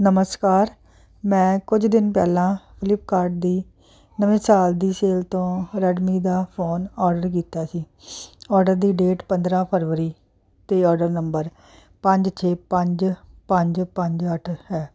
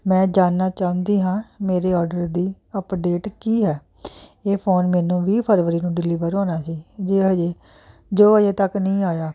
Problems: constant background noise